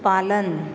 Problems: background conversations at intervals